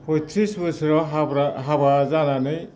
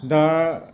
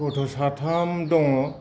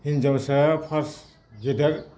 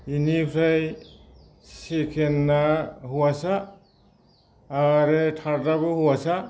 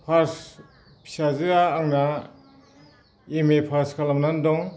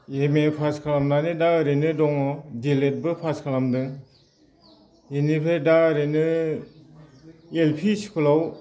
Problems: constant background noise